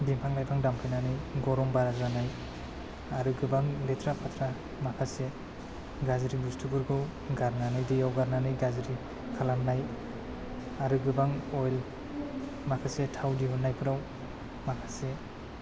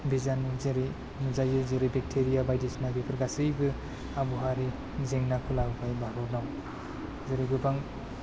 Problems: low volume